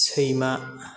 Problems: constant background noise